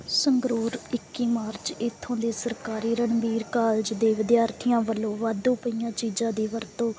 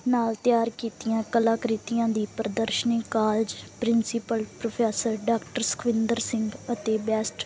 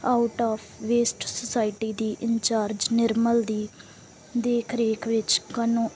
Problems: none marked